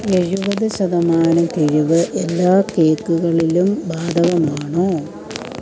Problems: continuous background conversations